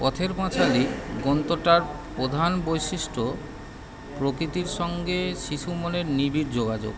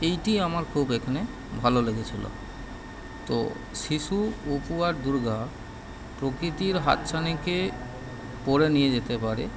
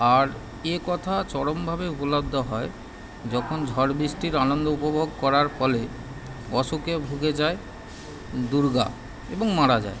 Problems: background sounds at intervals